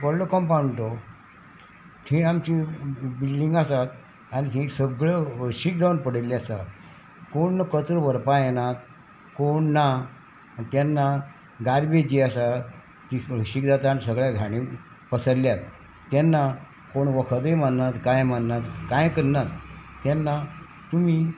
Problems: none marked